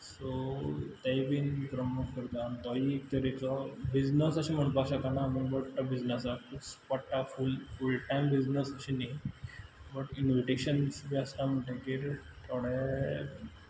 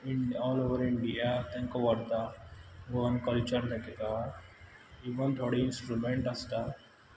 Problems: none marked